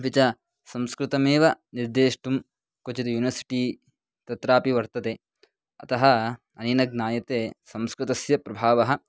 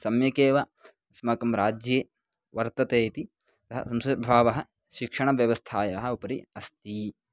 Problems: none marked